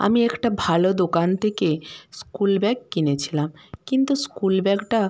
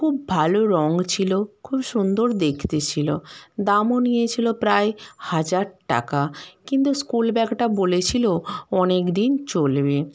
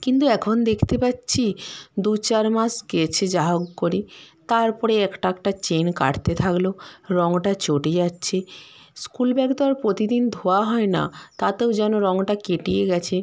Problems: background sounds at intervals